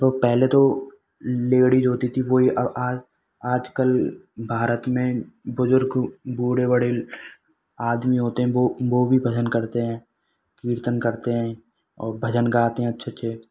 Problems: none marked